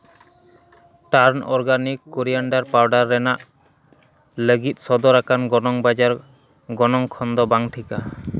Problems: none marked